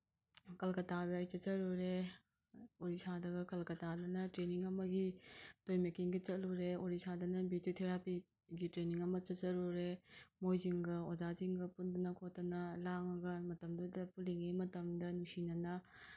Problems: none marked